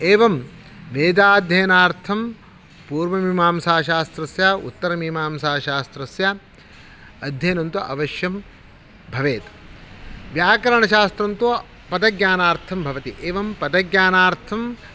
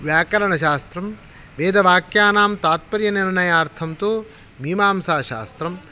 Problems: constant background noise